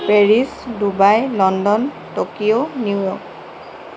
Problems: constant background noise